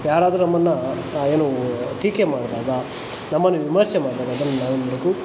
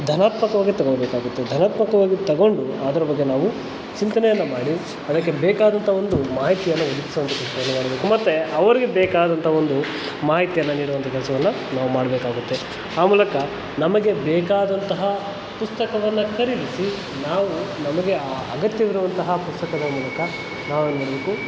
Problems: constant background noise